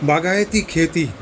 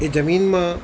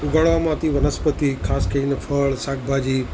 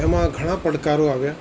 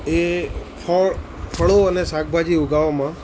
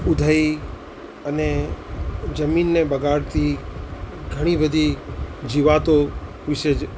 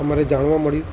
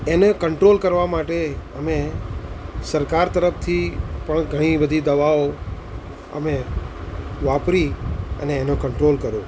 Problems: constant background noise